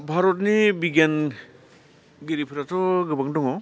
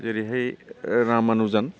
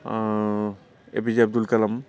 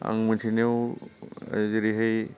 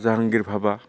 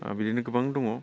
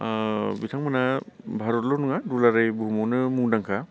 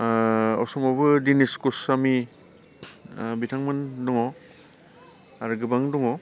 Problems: low volume